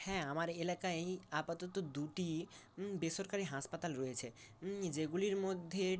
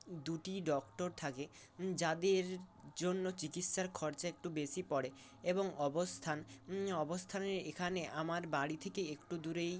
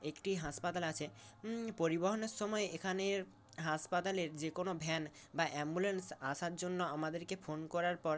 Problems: constant background noise